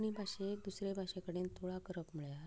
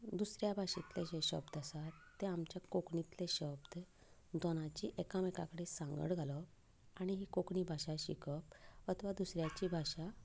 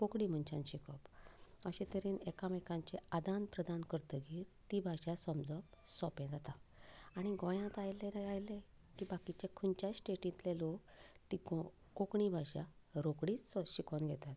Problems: background sounds at intervals